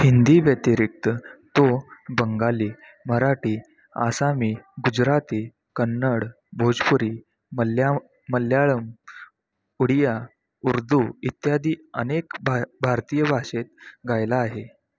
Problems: constant background noise, background conversations at intervals